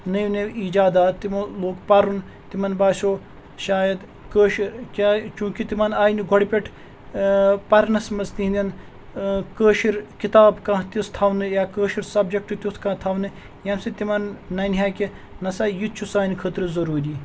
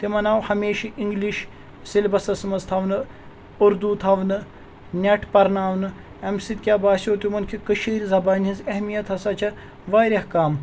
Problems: none marked